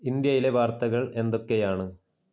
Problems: low volume